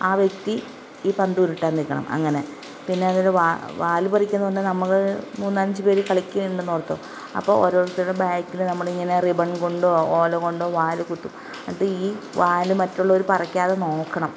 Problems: constant background noise